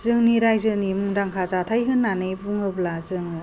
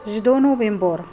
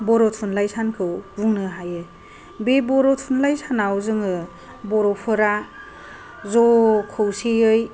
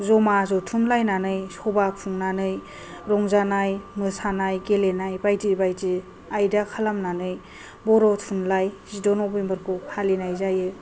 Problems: none marked